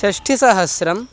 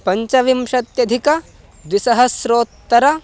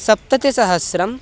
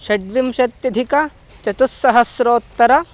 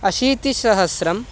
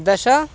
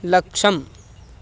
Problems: constant background noise